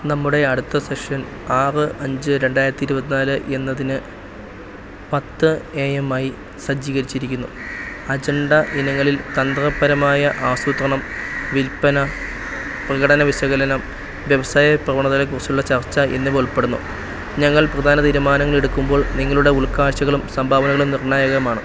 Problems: constant background noise